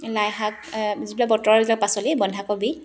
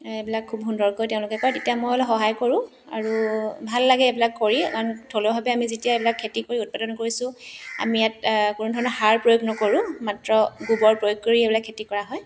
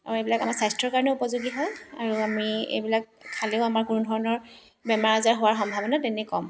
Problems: constant background noise